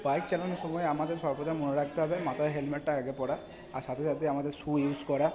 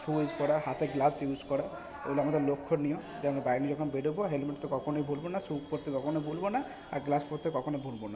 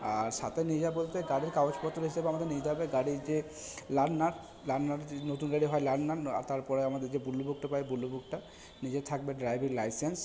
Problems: background sounds at intervals, background conversations at intervals